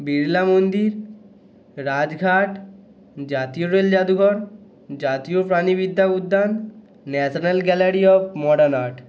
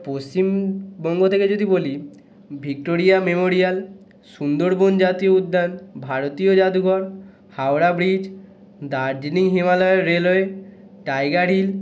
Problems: continuous background conversations